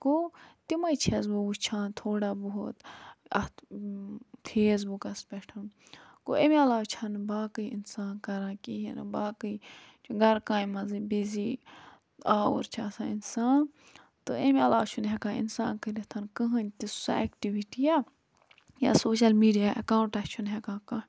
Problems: low volume